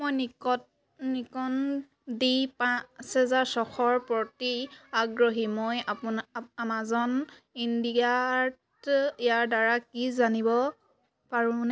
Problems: none marked